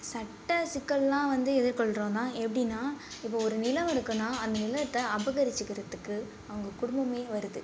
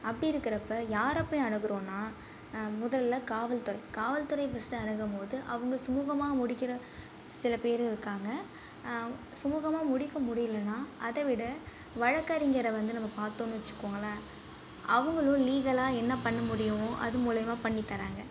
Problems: low volume